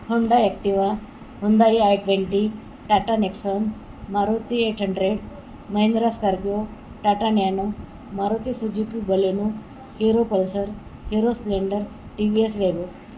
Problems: none marked